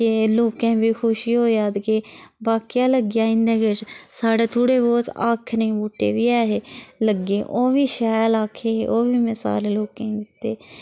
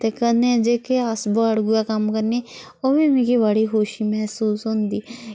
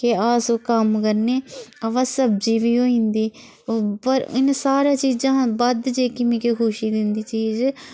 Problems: constant background noise